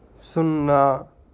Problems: constant background noise